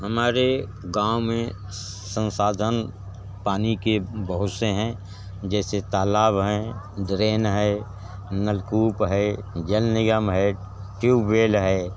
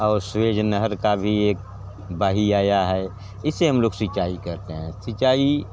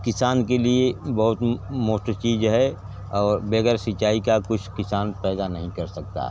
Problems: none marked